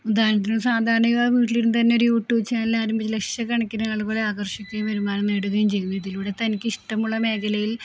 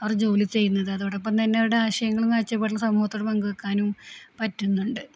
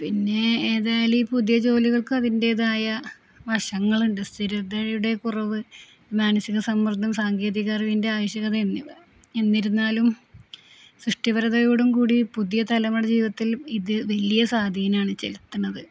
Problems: constant background noise, low volume